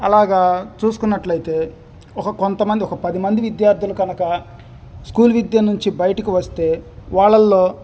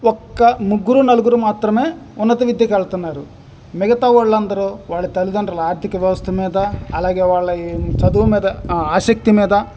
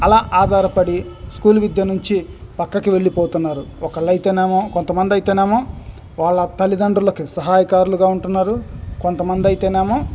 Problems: none marked